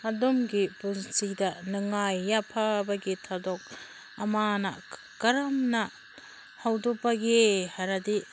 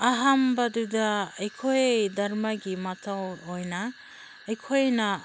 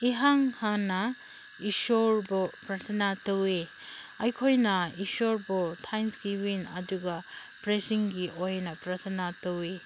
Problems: constant background noise